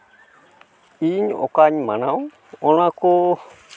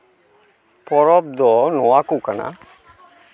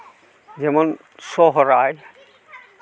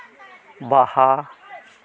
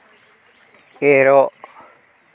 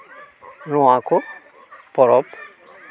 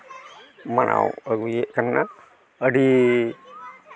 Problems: background sounds at intervals